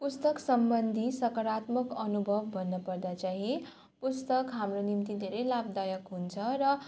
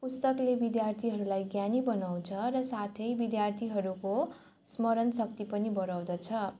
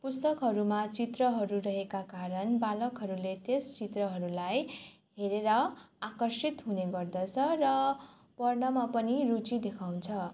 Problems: none marked